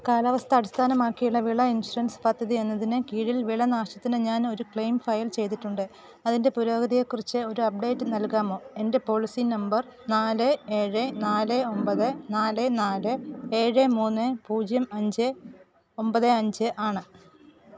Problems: background sounds at intervals